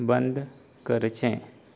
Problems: background sounds at intervals, low volume